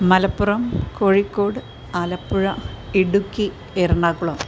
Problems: constant background noise